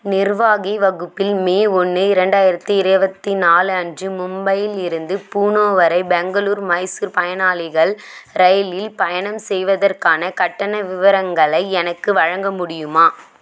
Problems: none marked